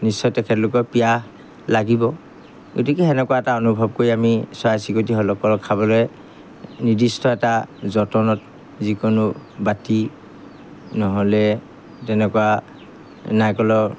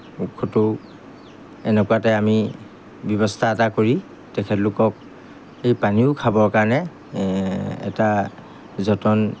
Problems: background sounds at intervals